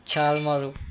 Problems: background sounds at intervals